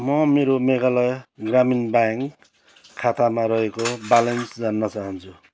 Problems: constant background noise